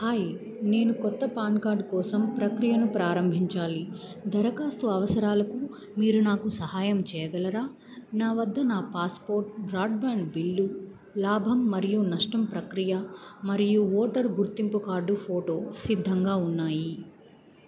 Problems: none marked